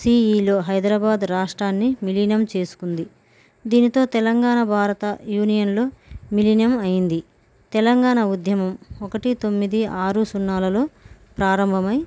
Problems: none marked